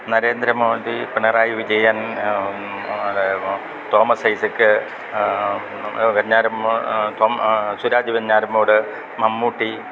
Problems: constant background noise